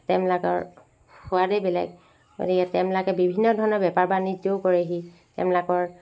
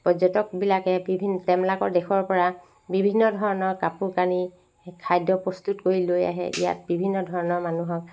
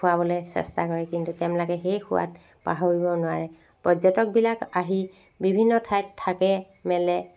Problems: constant background noise